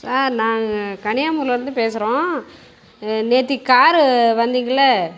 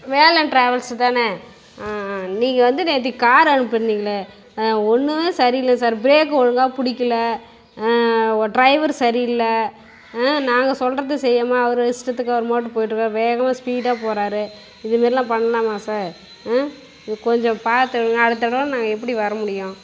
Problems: background sounds at intervals